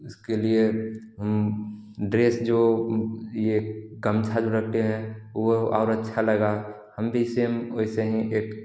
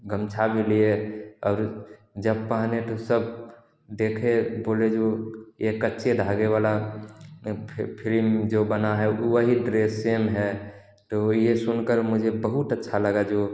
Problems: none marked